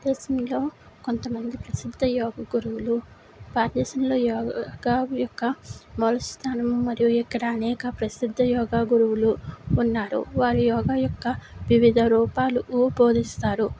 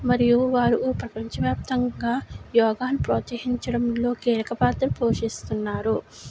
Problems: none marked